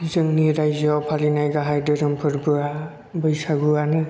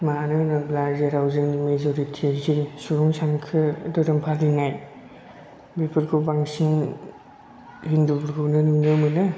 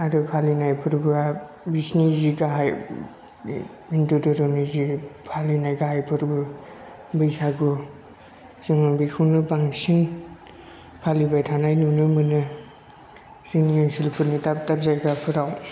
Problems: low volume